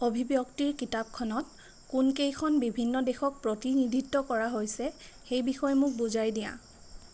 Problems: none marked